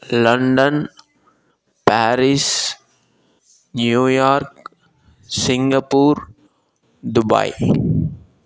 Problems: background sounds at intervals